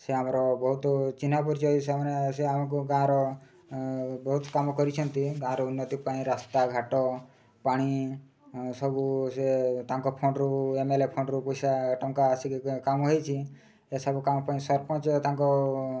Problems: none marked